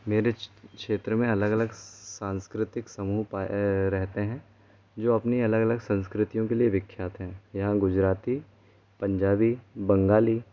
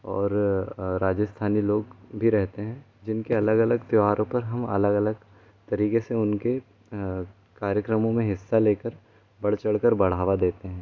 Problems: constant background noise